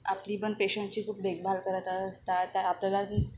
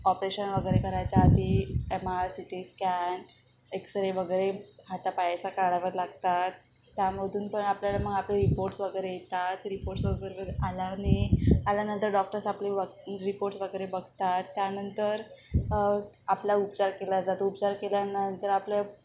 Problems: none marked